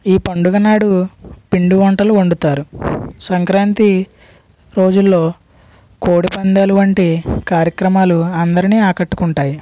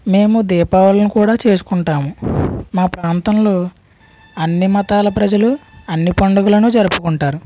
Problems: none marked